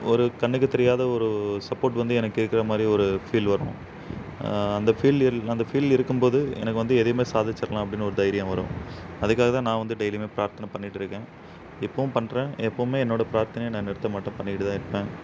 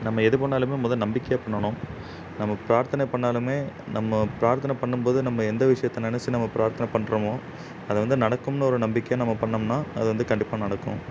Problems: constant background noise